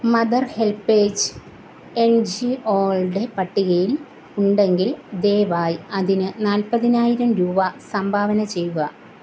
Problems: none marked